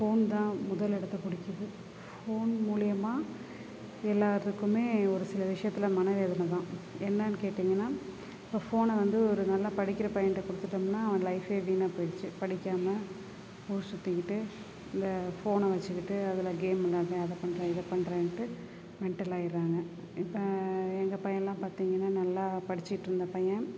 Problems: background sounds at intervals, background conversations at intervals